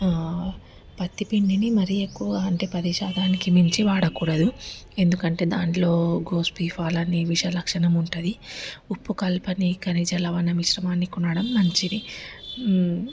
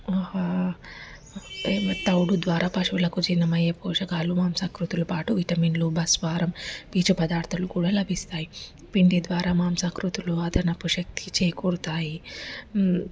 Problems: constant background noise